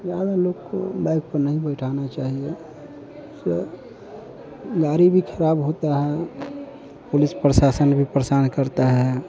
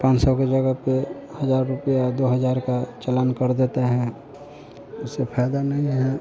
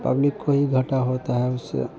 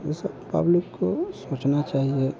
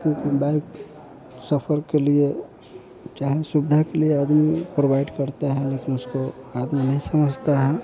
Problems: background conversations at intervals